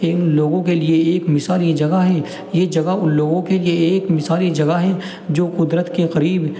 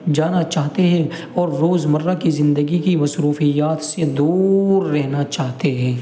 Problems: constant background noise